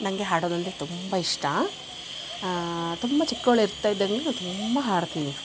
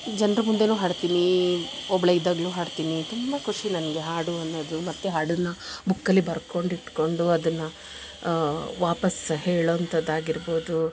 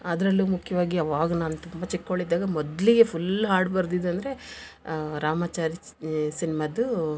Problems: none marked